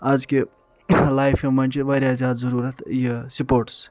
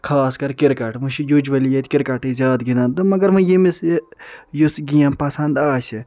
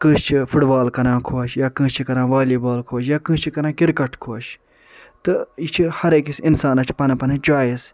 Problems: none marked